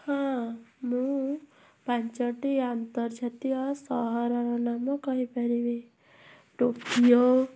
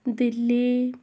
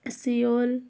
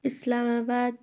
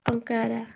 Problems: background sounds at intervals